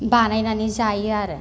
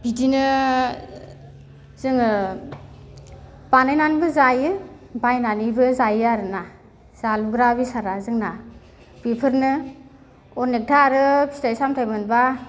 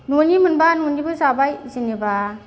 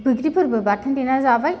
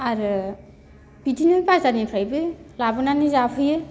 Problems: none marked